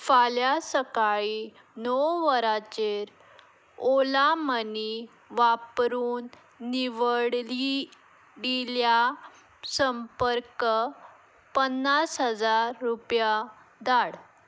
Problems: background sounds at intervals